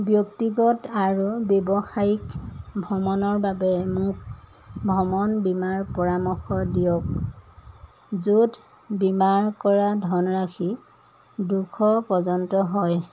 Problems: none marked